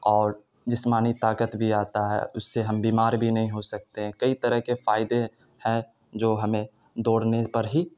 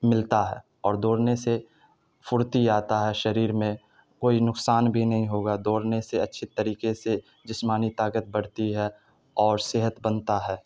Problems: none marked